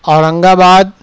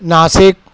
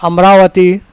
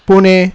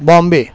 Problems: none marked